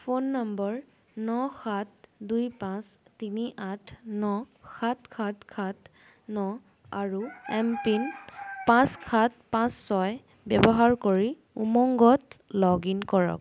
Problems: background sounds at intervals